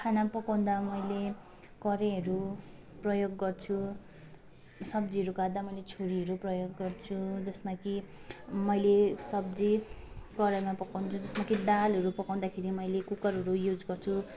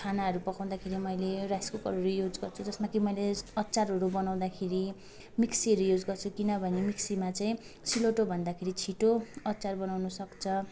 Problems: constant background noise, continuous background conversations